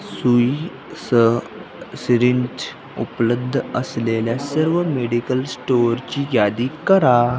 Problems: constant background noise, background conversations at intervals